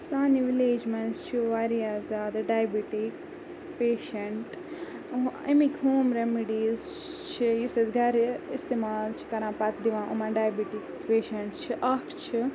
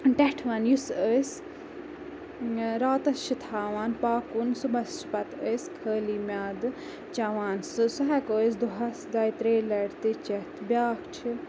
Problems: constant background noise